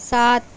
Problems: constant background noise